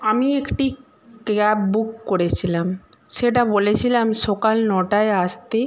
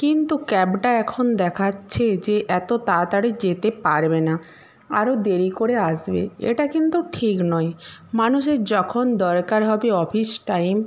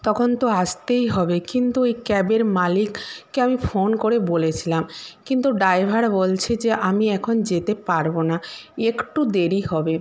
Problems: constant background noise